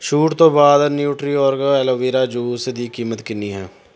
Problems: background sounds at intervals